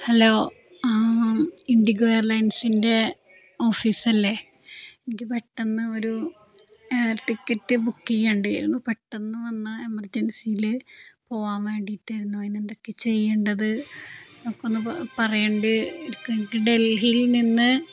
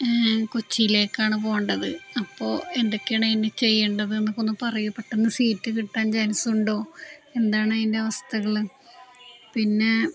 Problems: none marked